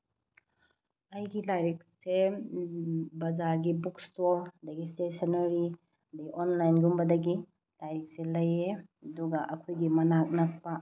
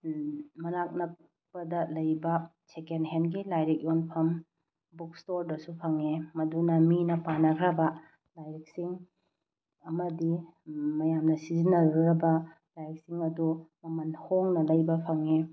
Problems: none marked